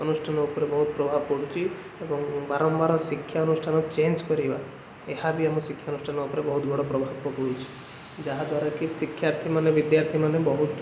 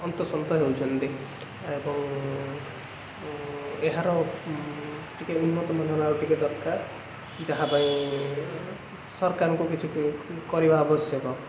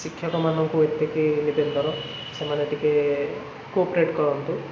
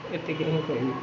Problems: constant background noise